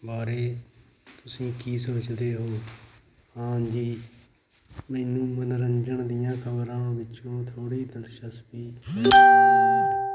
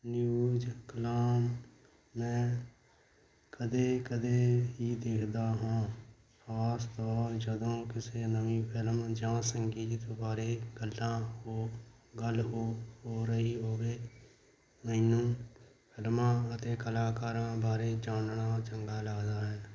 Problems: constant background noise